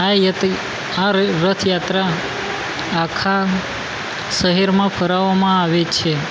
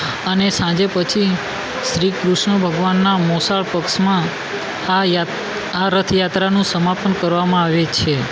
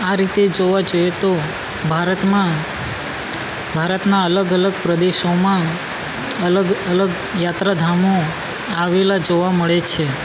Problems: constant background noise